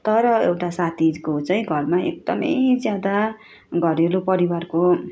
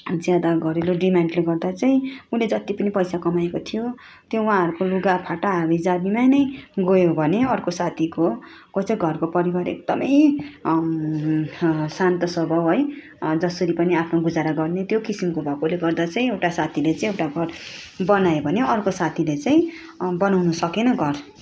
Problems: constant background noise